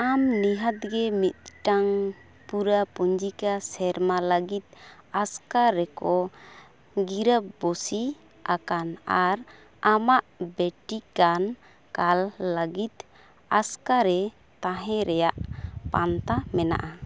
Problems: constant background noise, background conversations at intervals